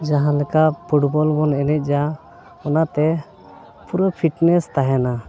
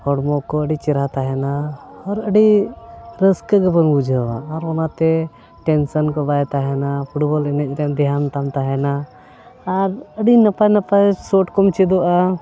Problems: constant background noise